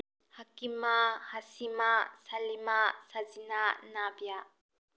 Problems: low volume